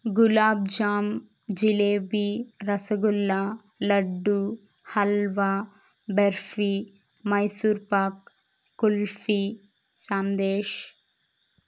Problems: none marked